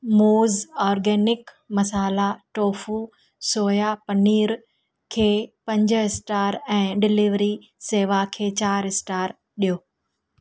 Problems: none marked